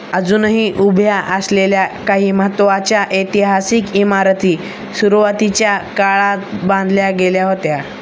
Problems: none marked